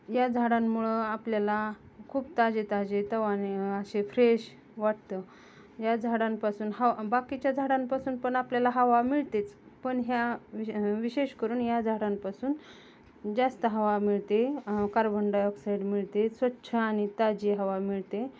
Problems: none marked